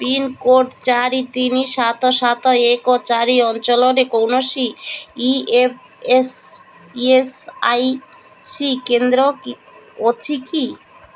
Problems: none marked